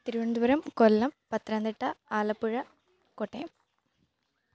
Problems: none marked